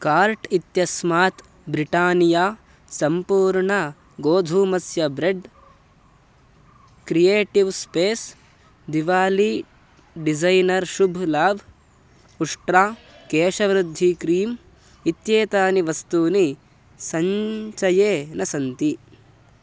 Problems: none marked